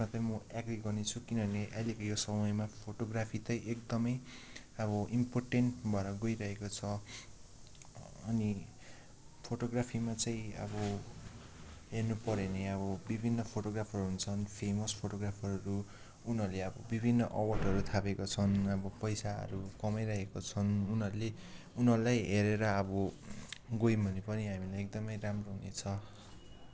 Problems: low volume